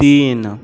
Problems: background sounds at intervals